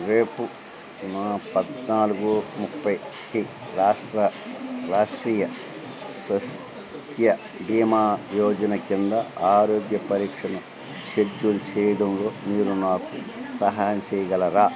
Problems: constant background noise